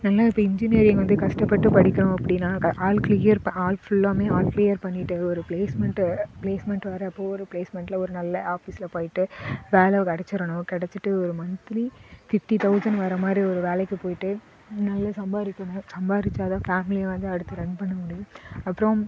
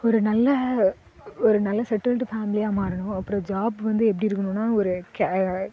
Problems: constant background noise, background conversations at intervals